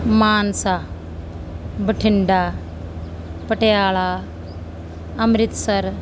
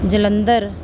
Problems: constant background noise